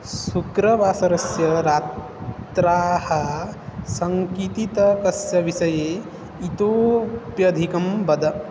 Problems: constant background noise